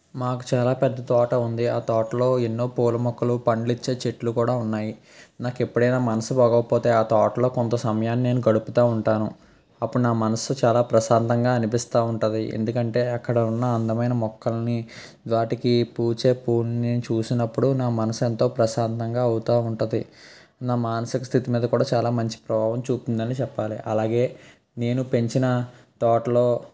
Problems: constant background noise